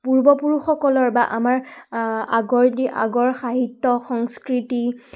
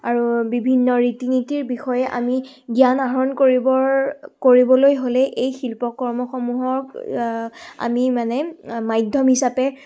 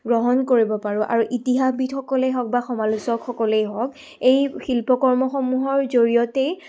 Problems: background sounds at intervals